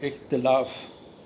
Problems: constant background noise